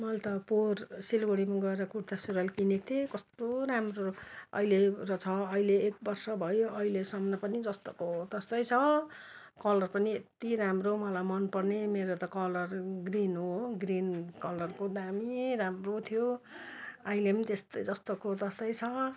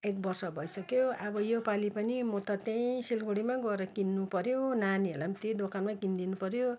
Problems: none marked